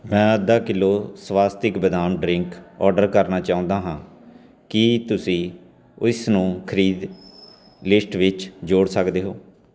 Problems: none marked